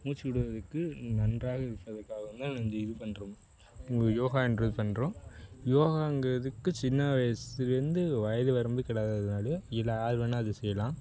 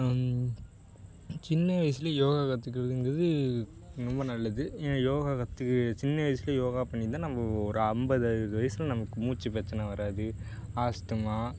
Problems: constant background noise